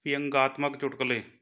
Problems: none marked